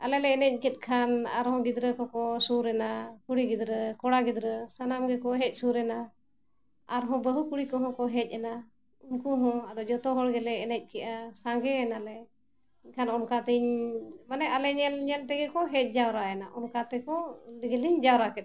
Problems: none marked